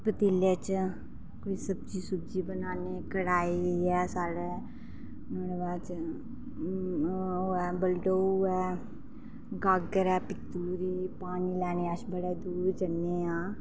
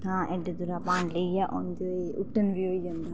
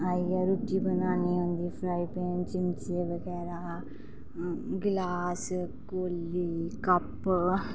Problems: none marked